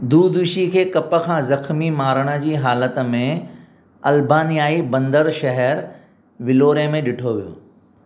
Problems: none marked